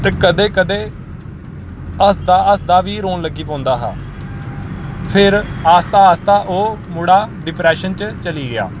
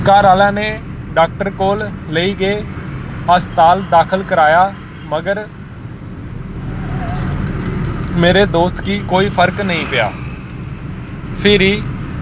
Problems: constant background noise